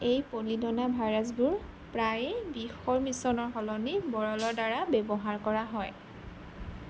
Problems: none marked